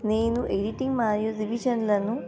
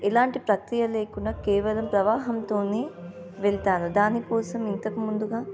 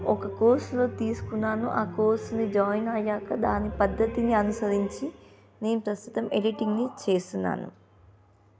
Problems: constant background noise